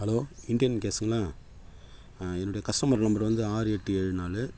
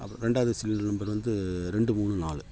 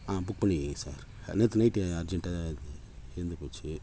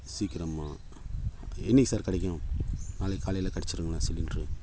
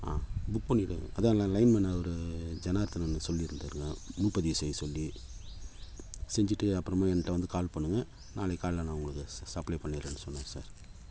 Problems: constant background noise